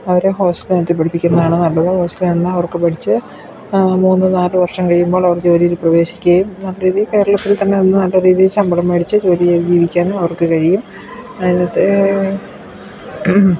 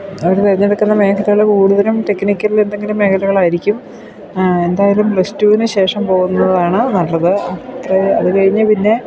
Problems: background sounds at intervals